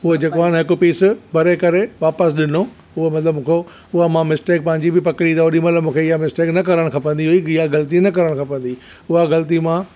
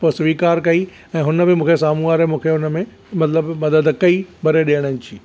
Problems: background sounds at intervals